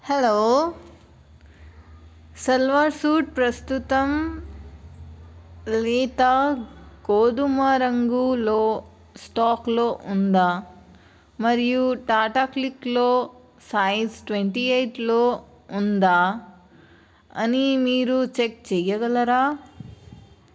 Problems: none marked